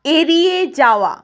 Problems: none marked